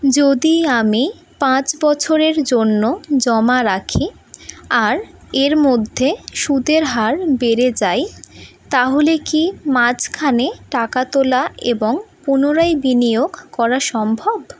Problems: background sounds at intervals